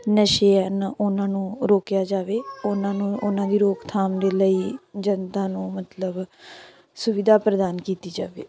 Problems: continuous background conversations